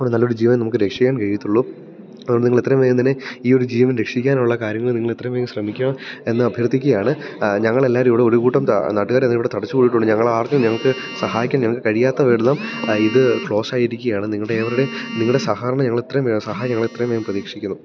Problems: background sounds at intervals